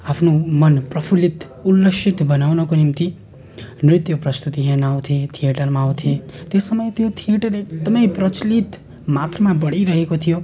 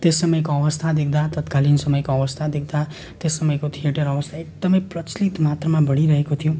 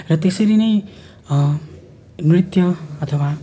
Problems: constant background noise